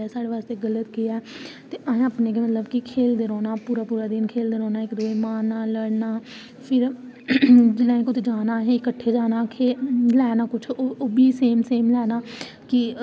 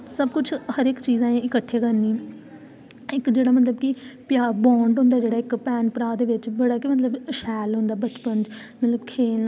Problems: none marked